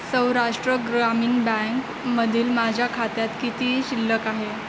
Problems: constant background noise